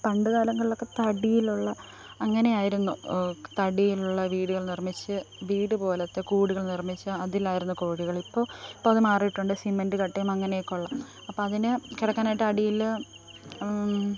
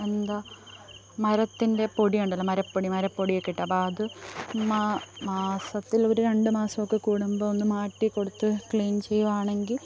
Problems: background sounds at intervals